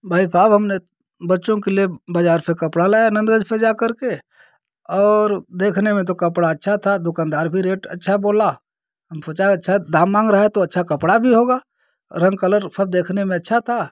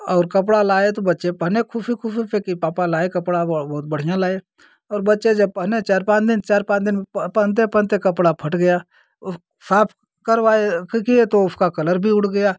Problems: constant background noise